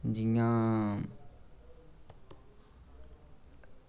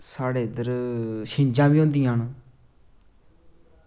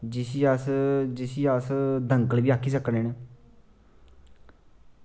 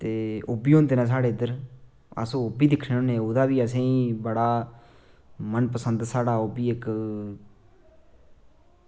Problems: low volume